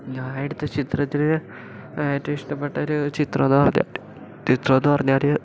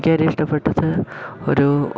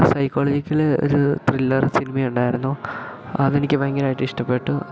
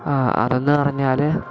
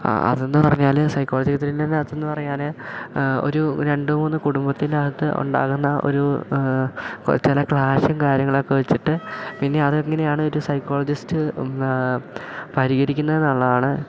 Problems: low volume